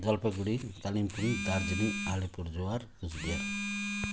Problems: background sounds at intervals